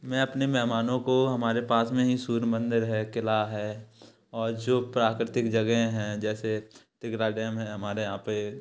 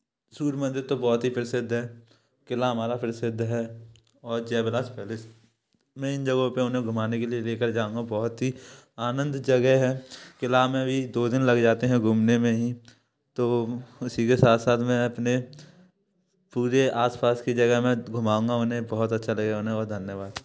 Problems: background sounds at intervals